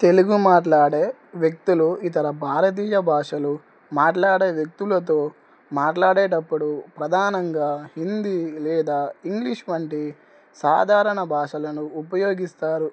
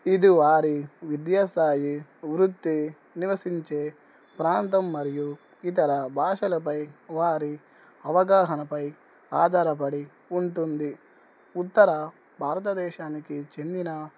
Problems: none marked